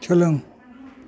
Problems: constant background noise